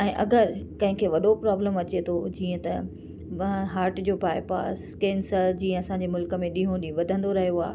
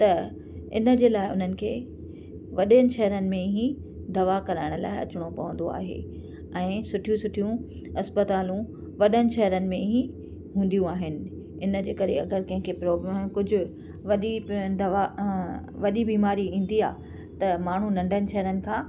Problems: constant background noise